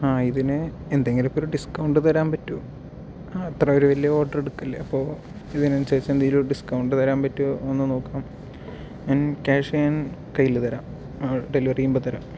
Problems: background sounds at intervals, low volume